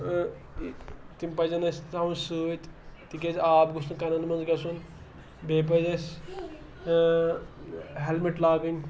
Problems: background sounds at intervals, background conversations at intervals